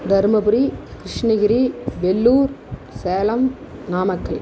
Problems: none marked